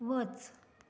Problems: none marked